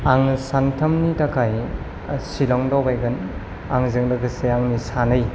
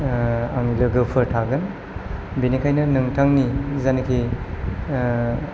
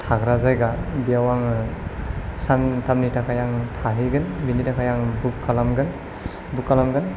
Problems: low volume